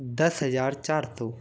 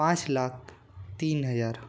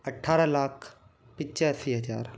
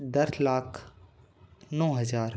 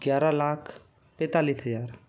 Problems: none marked